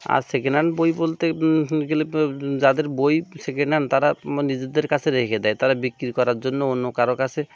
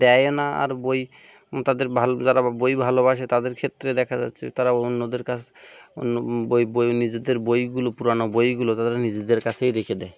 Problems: constant background noise